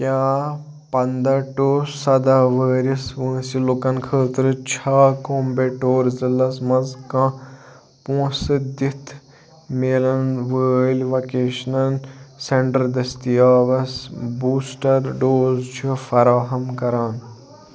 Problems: low volume